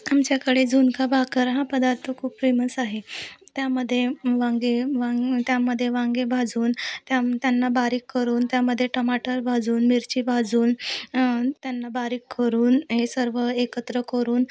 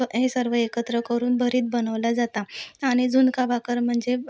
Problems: constant background noise, background conversations at intervals